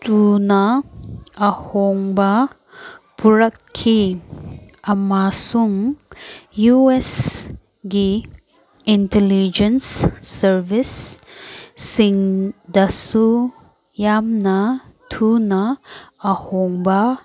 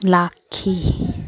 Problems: background conversations at intervals